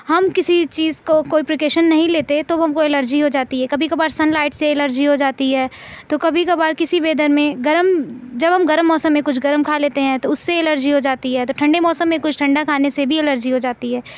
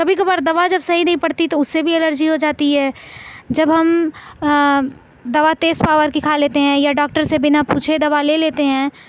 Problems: none marked